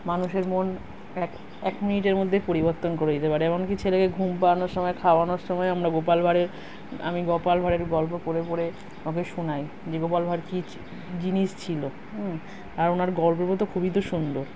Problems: background sounds at intervals